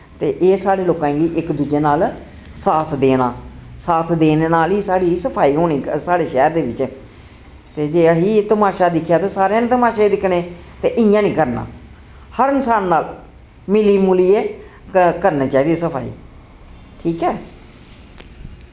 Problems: constant background noise